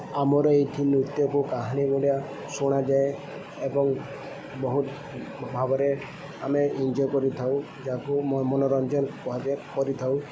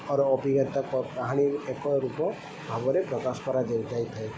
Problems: none marked